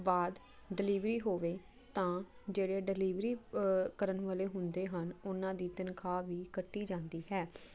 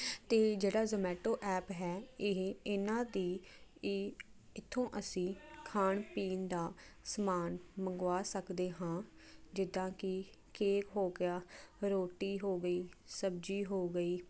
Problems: constant background noise